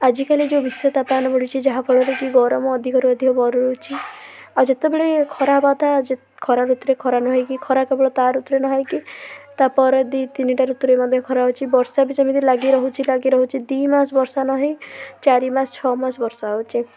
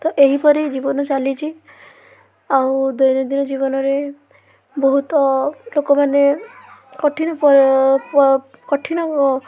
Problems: constant background noise, continuous background conversations